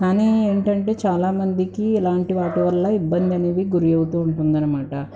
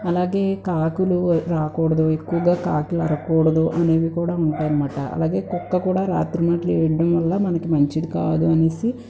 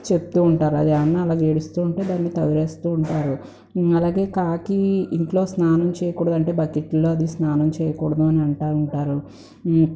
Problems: background conversations at intervals